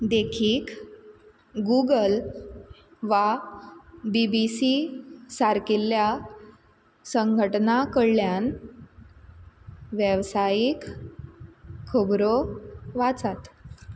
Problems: constant background noise